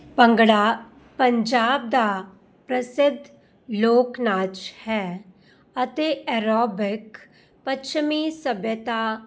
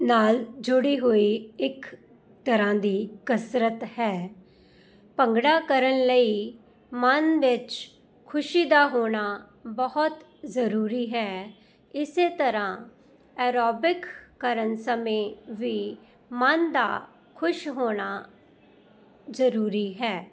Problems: none marked